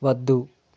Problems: none marked